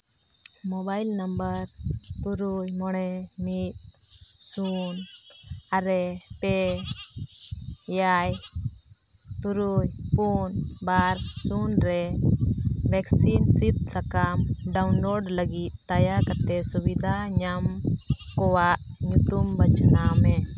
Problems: constant background noise